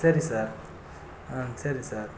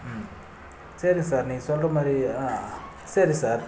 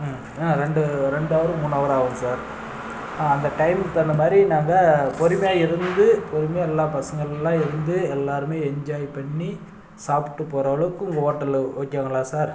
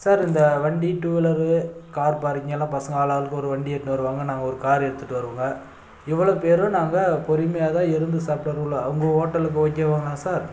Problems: background sounds at intervals